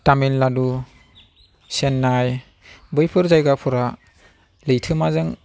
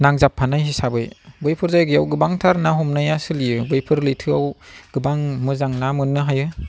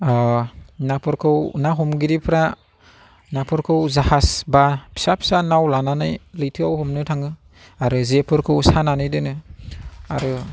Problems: none marked